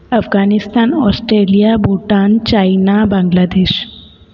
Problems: echo